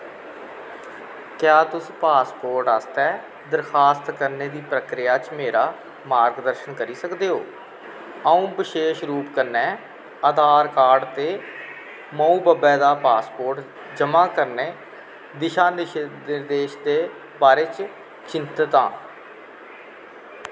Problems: constant background noise